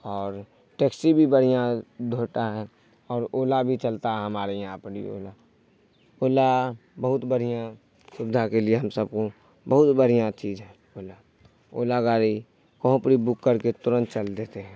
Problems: none marked